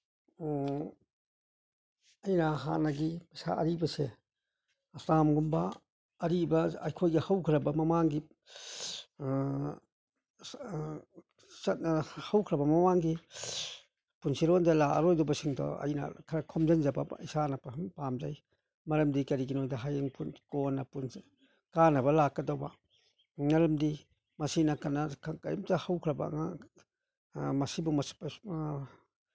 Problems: none marked